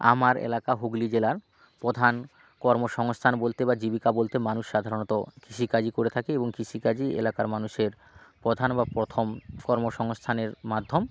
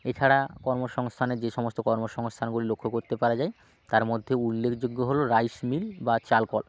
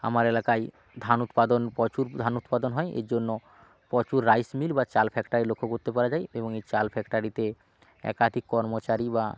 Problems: background sounds at intervals